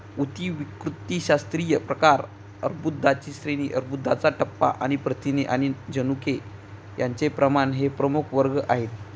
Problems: none marked